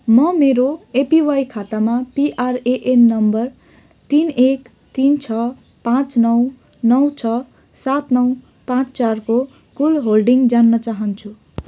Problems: background conversations at intervals